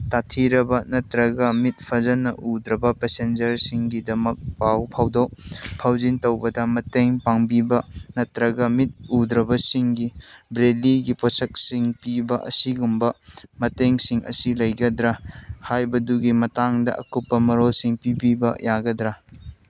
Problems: background sounds at intervals